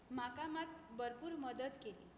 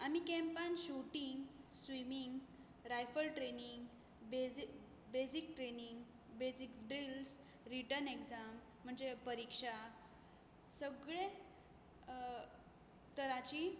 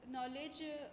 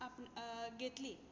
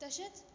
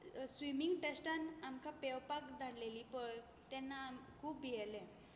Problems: none marked